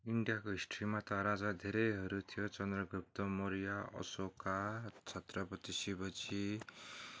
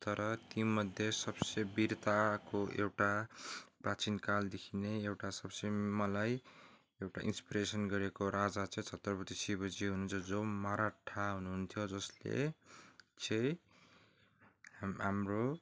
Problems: background sounds at intervals